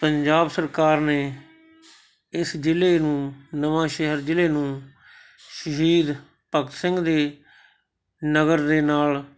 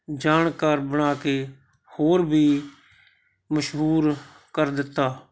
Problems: constant background noise